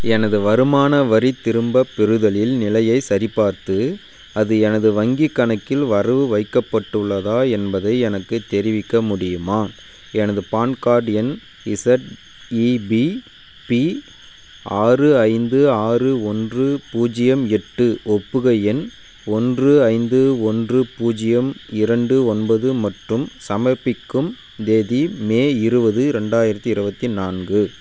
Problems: constant background noise